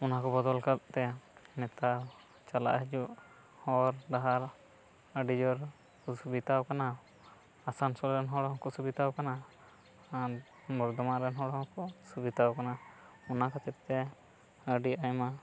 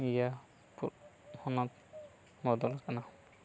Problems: background sounds at intervals, low volume